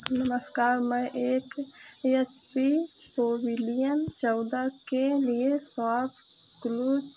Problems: constant background noise